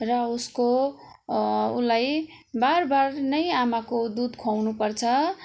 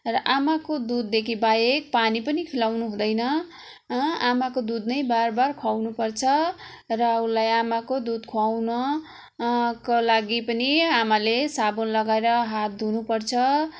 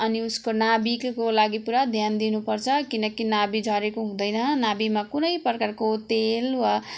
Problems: constant background noise